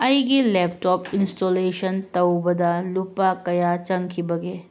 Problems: none marked